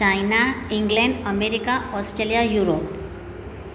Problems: constant background noise